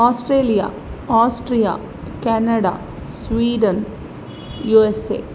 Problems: constant background noise